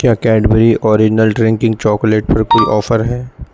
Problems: background sounds at intervals